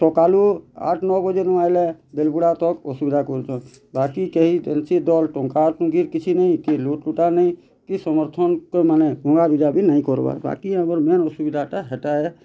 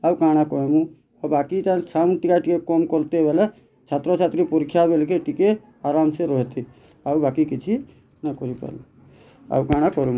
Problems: constant background noise